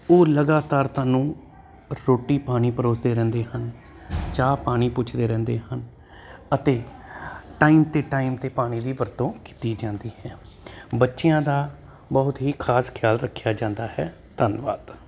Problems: constant background noise